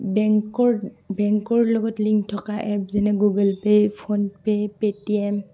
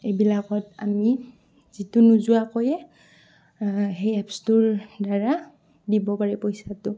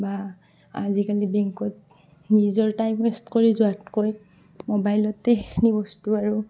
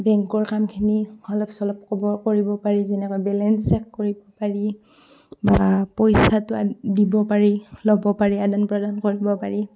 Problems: background sounds at intervals, background conversations at intervals